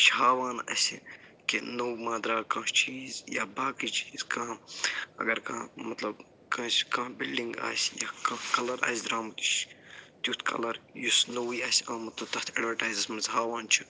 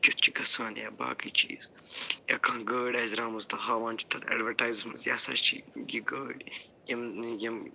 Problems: low volume